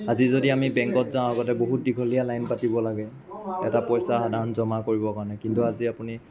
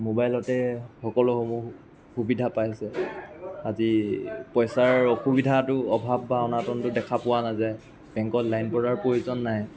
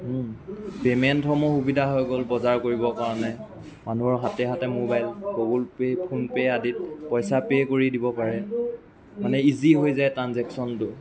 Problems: constant background noise